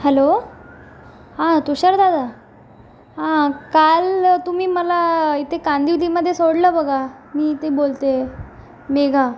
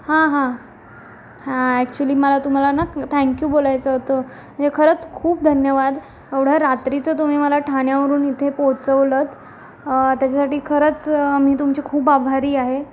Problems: constant background noise